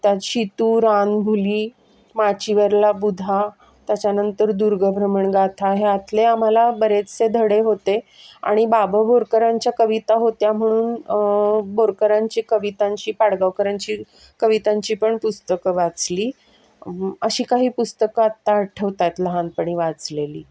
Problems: background sounds at intervals, background conversations at intervals